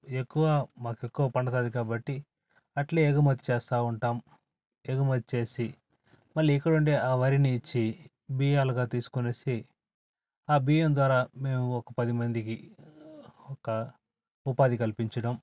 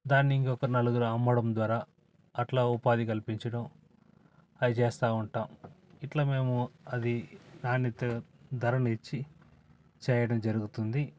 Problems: none marked